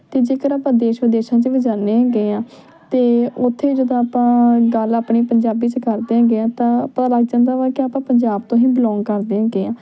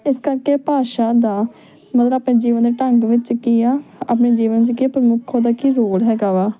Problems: background conversations at intervals